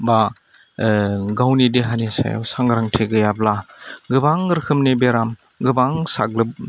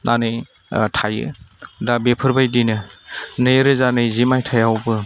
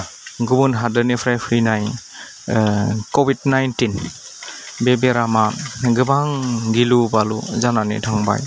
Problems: low volume